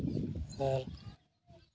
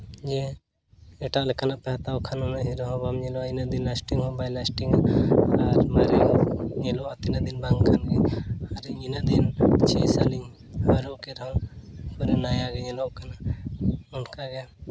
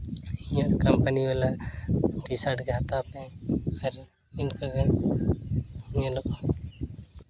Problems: none marked